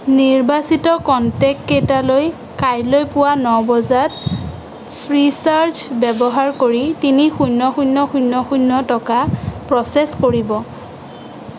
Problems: constant background noise